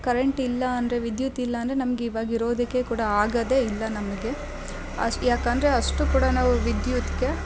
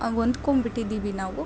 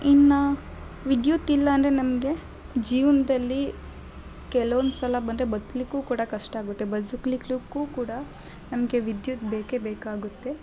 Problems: background sounds at intervals